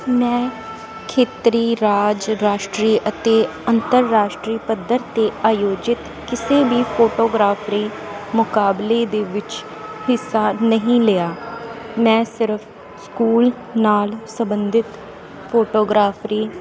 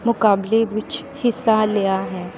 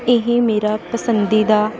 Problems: constant background noise